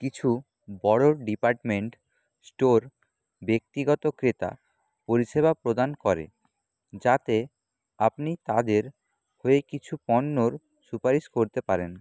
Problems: none marked